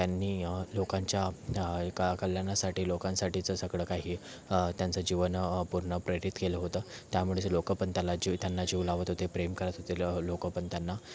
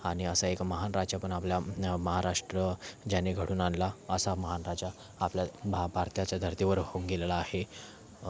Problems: background sounds at intervals, continuous background conversations